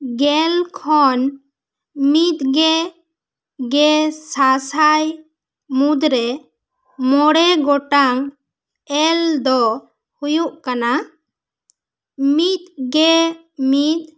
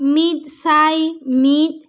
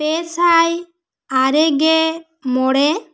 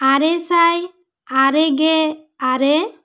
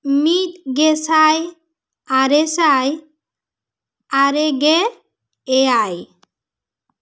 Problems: none marked